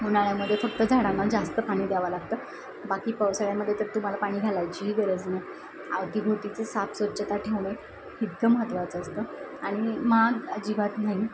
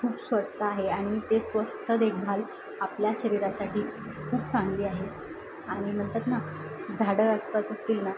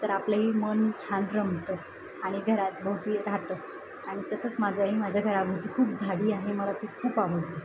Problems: constant background noise, background conversations at intervals